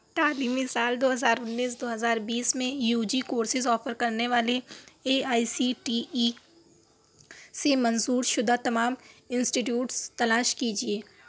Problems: none marked